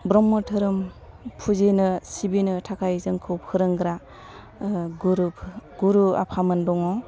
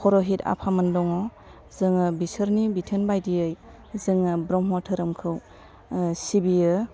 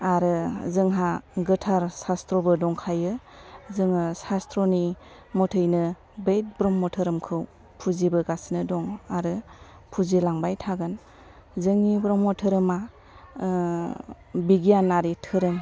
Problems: low volume